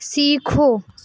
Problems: constant background noise